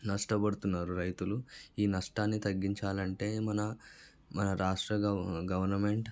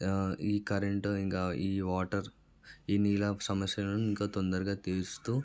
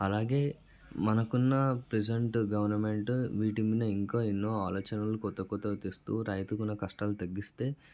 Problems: background sounds at intervals